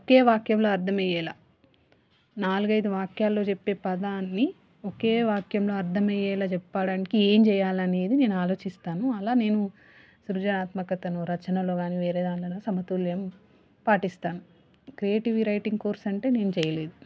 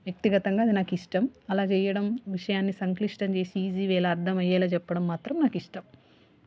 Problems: background sounds at intervals